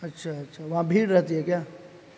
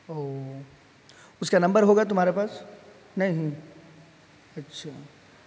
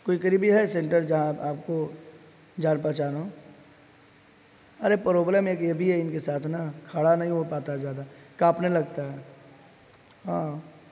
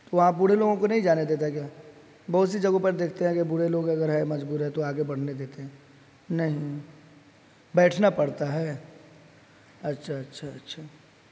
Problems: constant background noise